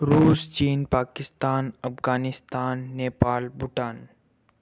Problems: none marked